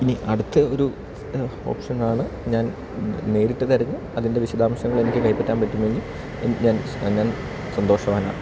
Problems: constant background noise